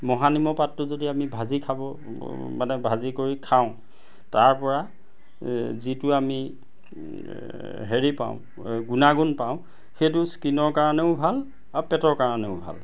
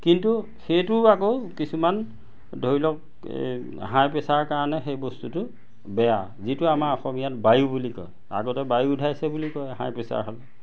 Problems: none marked